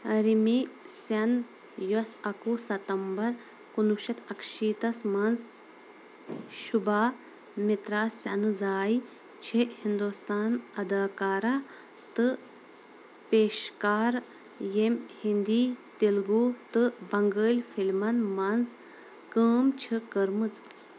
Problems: constant background noise